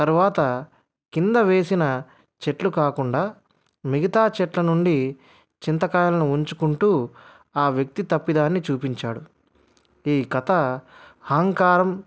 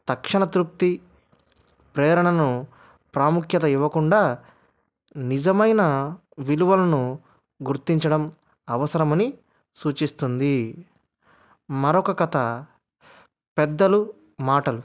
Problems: none marked